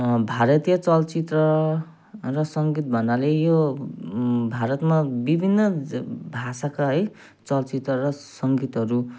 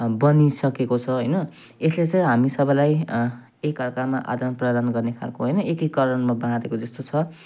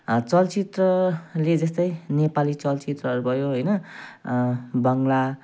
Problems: none marked